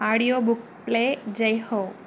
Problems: none marked